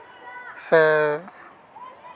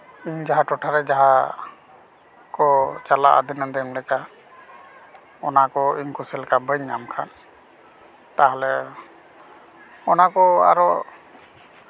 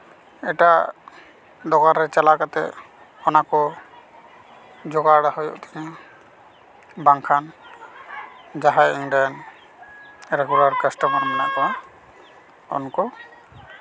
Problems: none marked